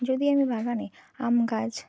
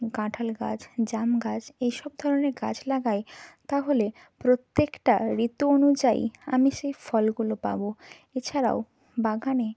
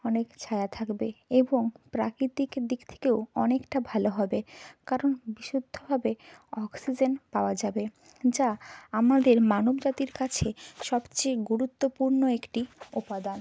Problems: constant background noise